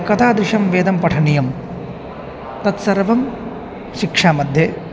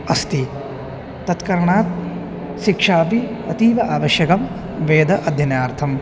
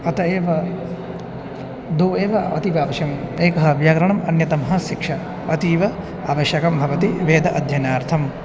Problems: constant background noise, continuous background conversations